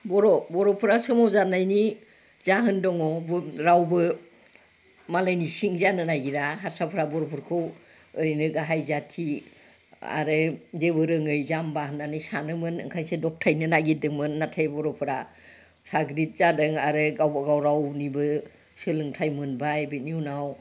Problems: background conversations at intervals